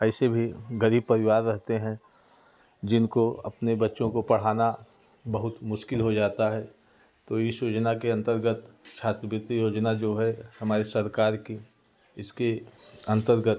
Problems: constant background noise, background conversations at intervals